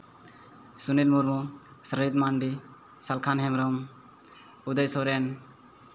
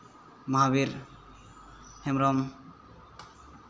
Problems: constant background noise